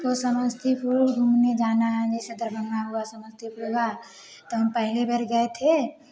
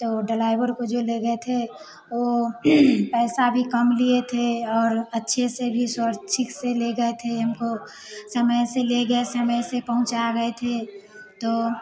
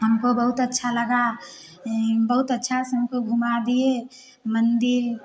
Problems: none marked